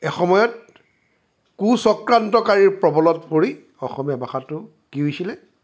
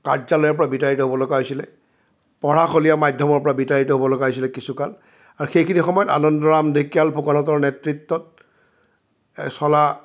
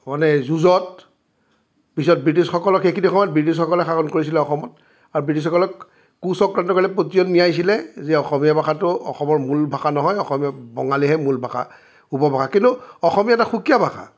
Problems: none marked